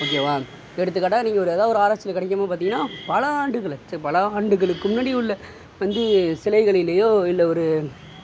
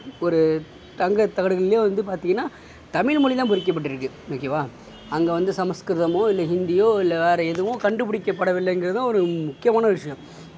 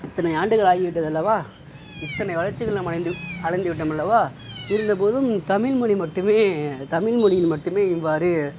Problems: constant background noise